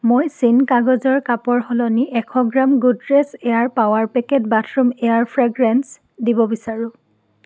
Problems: none marked